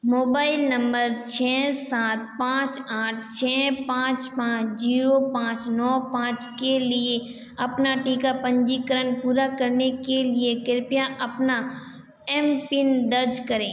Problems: echo